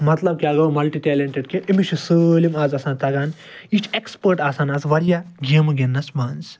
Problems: background sounds at intervals